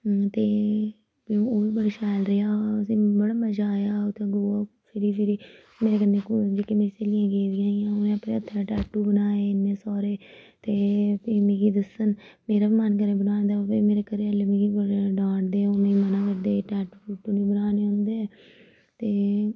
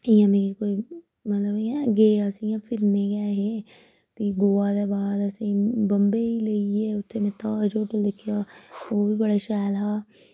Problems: none marked